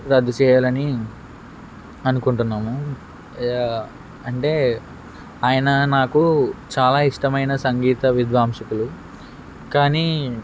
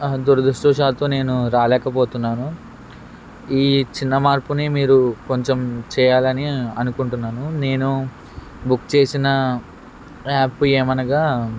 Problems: constant background noise